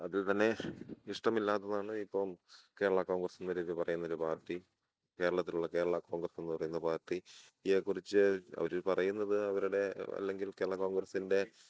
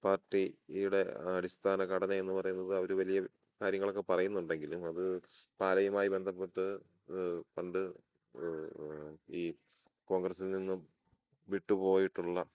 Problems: none marked